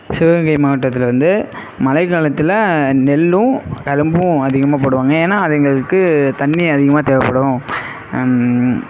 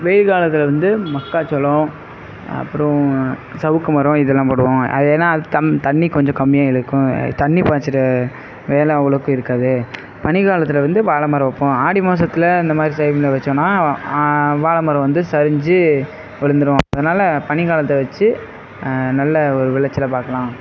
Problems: background sounds at intervals